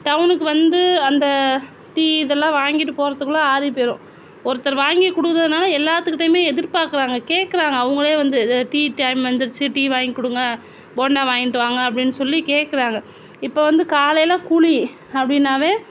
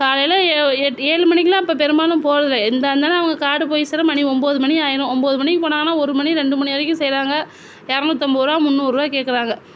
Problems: constant background noise